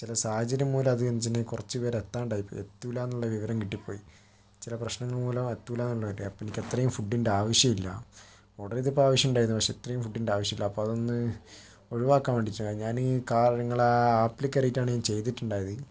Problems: background sounds at intervals